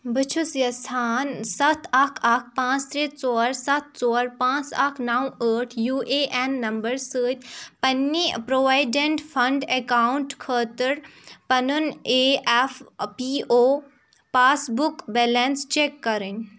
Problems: background sounds at intervals